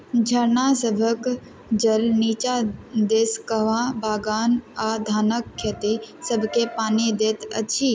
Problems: background sounds at intervals